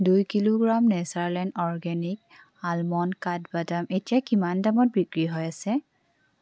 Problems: none marked